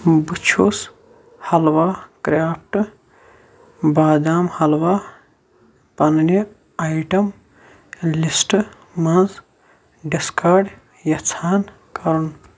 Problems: none marked